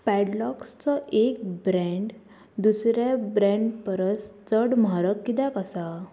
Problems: constant background noise